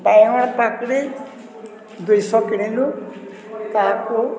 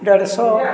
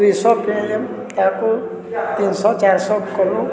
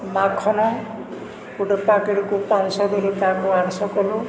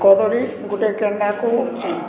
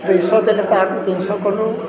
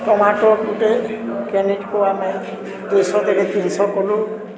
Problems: constant background noise, continuous background conversations